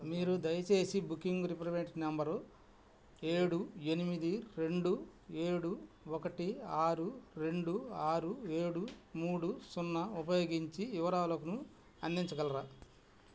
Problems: none marked